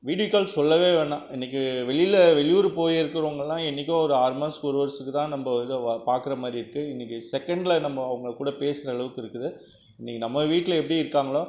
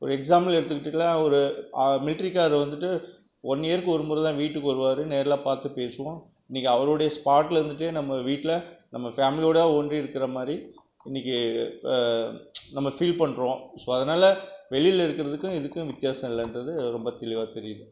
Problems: background sounds at intervals